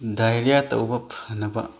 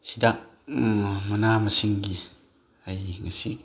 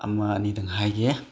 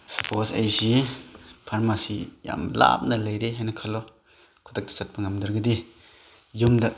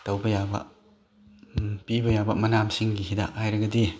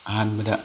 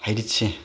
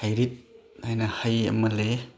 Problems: none marked